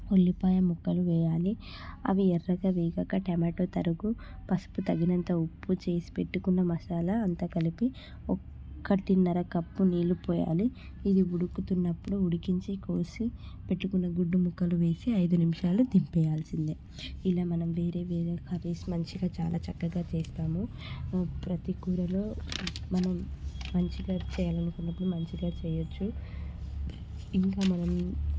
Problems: none marked